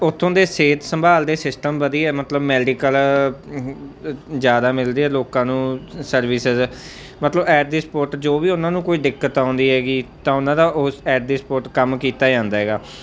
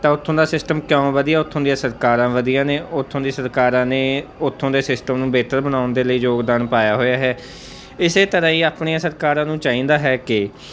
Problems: none marked